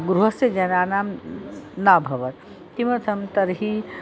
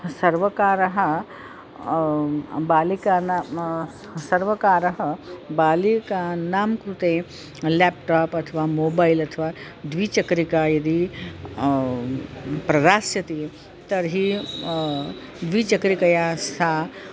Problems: constant background noise, continuous background conversations